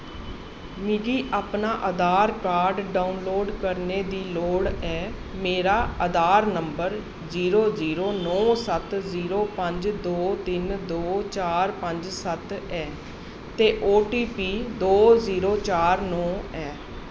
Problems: none marked